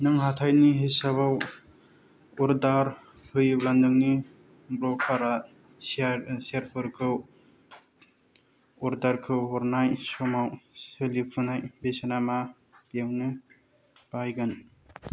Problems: none marked